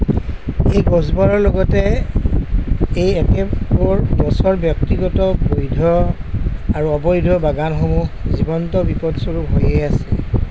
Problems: constant background noise